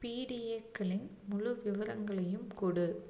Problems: none marked